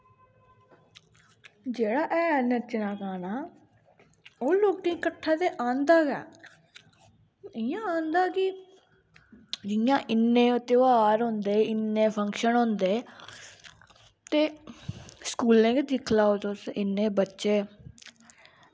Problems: constant background noise